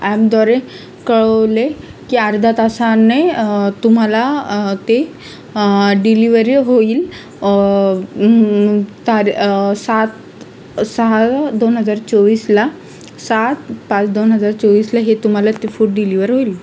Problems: constant background noise